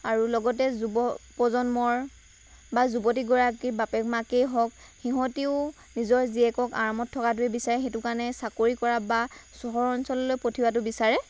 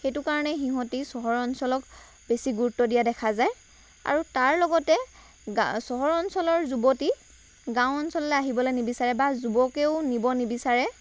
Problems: none marked